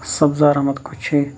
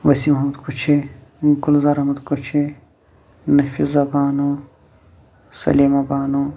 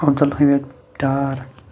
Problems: constant background noise